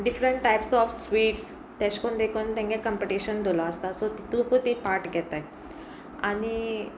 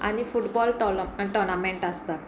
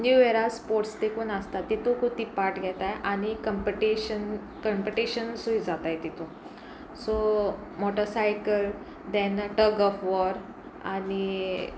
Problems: none marked